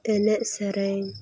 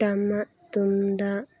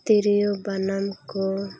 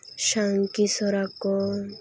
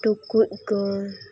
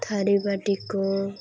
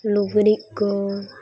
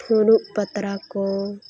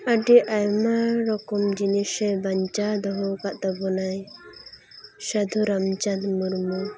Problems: constant background noise, continuous background conversations